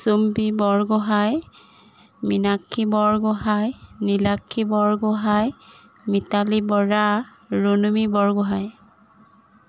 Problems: none marked